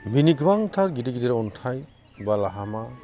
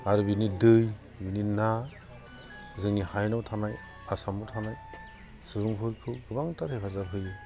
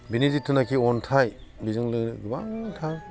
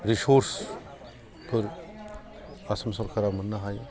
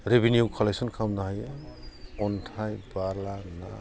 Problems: constant background noise